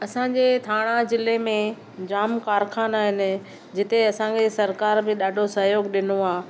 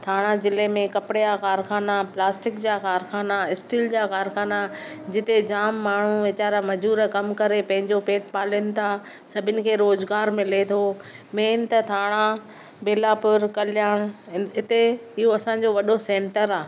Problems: none marked